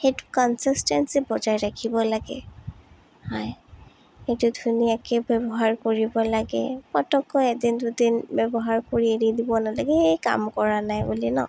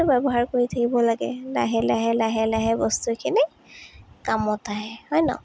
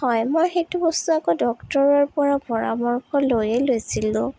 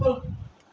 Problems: none marked